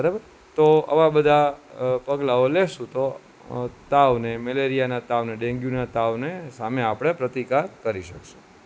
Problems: constant background noise